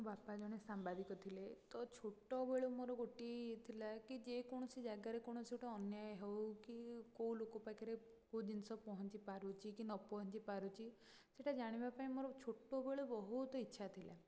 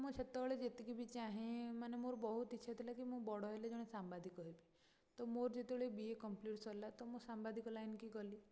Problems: low volume